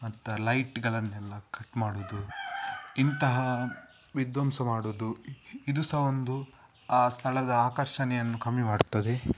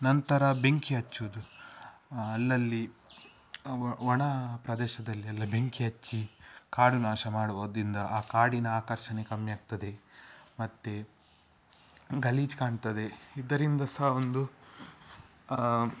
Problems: none marked